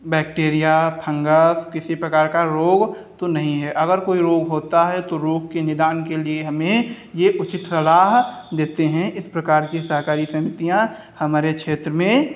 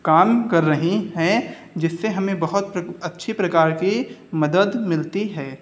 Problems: none marked